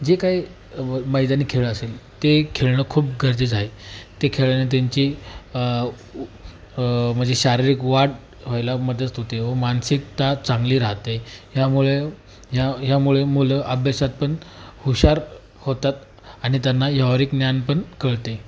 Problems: constant background noise